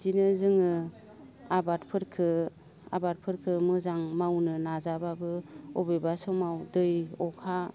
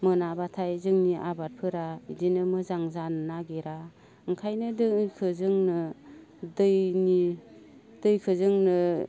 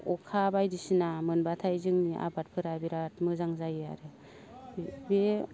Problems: low volume